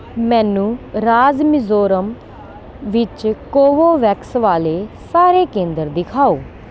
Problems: constant background noise